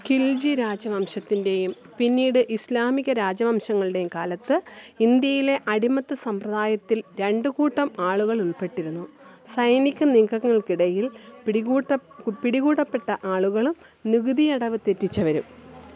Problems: background sounds at intervals